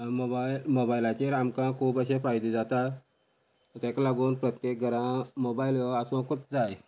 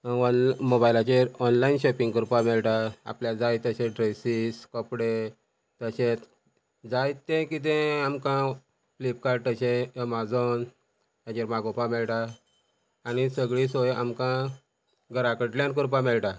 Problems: constant background noise